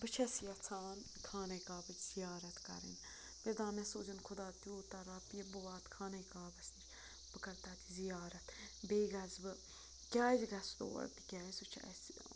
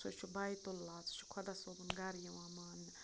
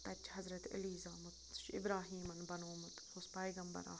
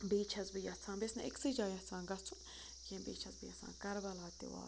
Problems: constant background noise, background conversations at intervals